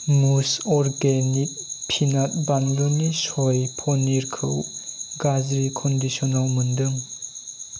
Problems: constant background noise